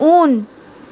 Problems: constant background noise